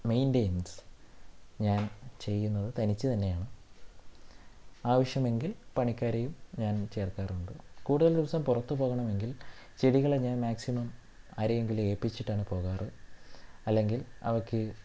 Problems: low volume